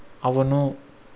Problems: constant background noise